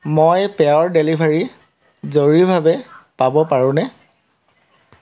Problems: constant background noise